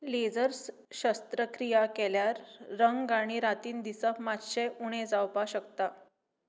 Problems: none marked